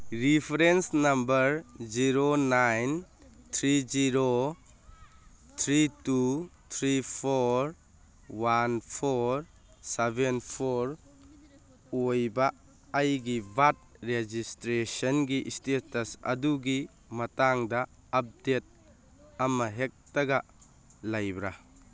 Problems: none marked